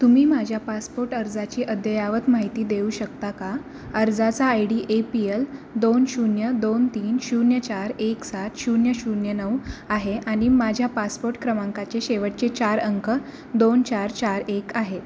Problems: constant background noise